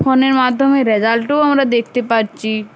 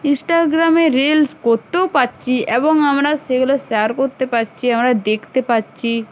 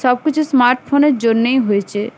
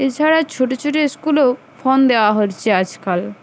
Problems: none marked